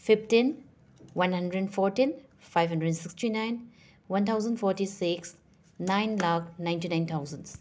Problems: background sounds at intervals